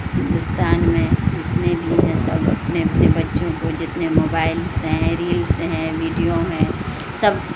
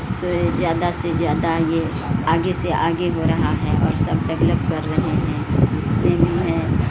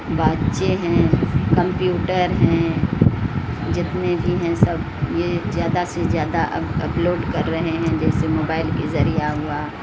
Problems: constant background noise